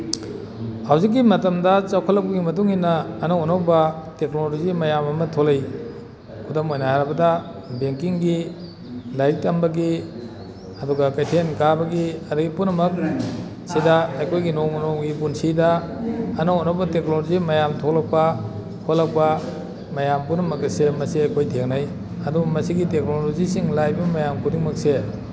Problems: background sounds at intervals